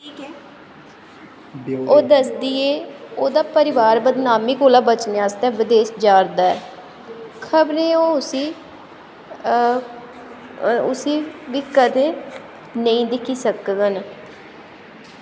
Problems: constant background noise, background conversations at intervals